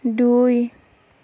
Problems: none marked